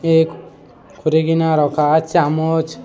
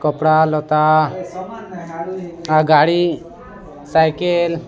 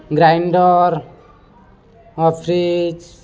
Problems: constant background noise, continuous background conversations